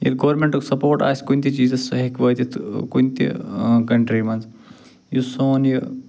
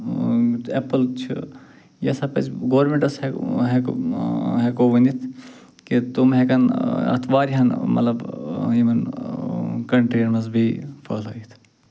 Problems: none marked